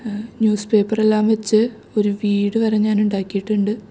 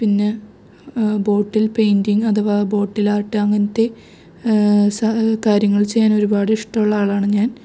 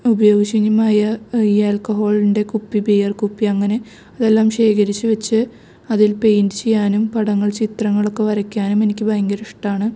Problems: none marked